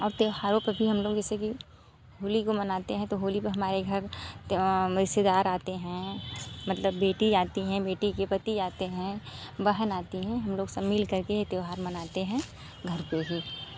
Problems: constant background noise